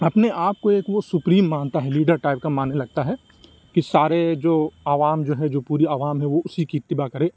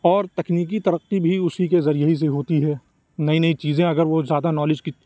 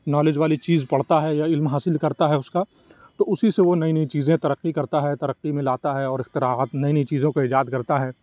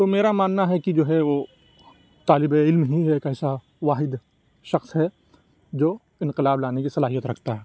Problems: none marked